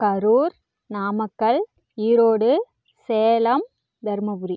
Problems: none marked